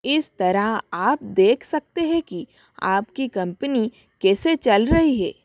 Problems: none marked